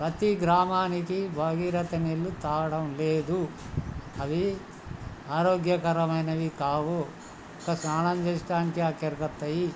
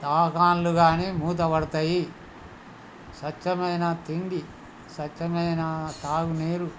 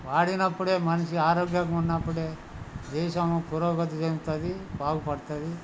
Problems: constant background noise, background conversations at intervals